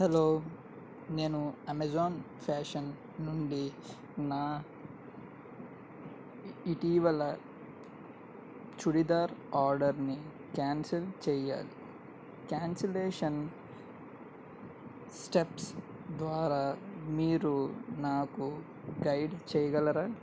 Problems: none marked